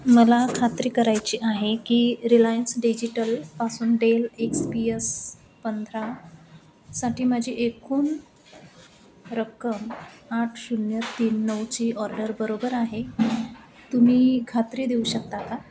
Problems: constant background noise, background conversations at intervals, echo